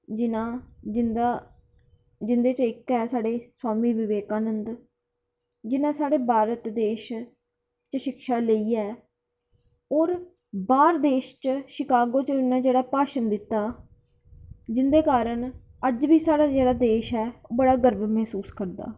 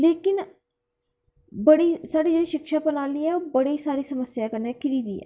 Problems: background sounds at intervals